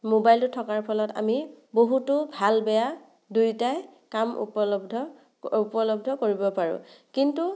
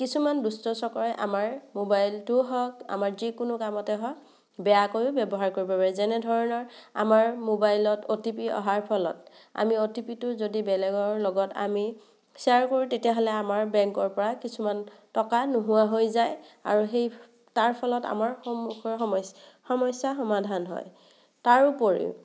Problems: none marked